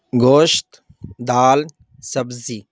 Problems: none marked